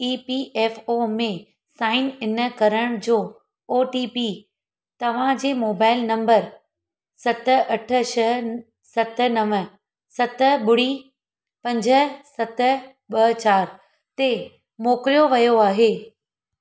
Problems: none marked